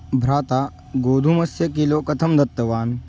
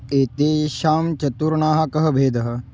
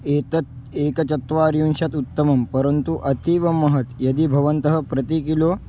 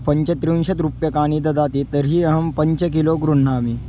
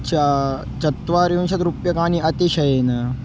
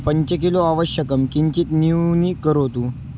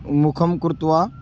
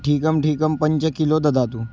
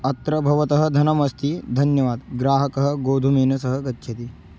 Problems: none marked